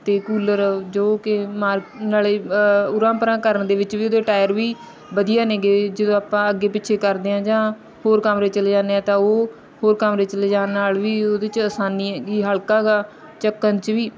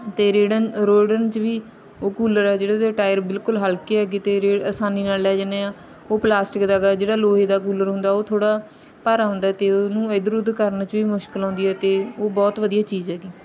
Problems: background sounds at intervals